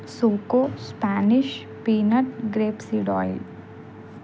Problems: constant background noise